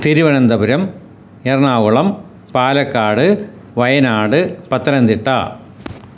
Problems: none marked